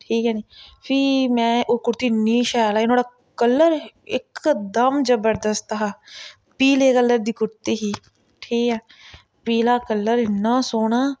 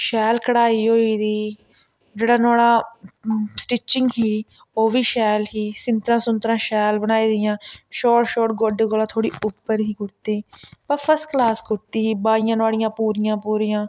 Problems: none marked